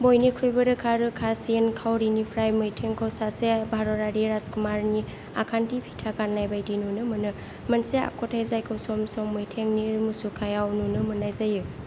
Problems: constant background noise